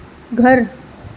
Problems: background sounds at intervals